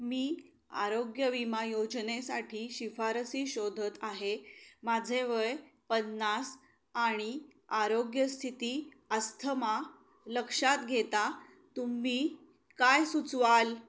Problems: constant background noise